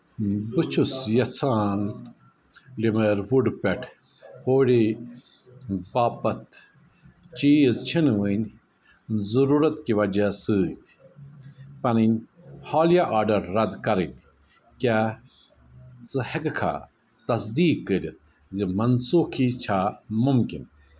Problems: background conversations at intervals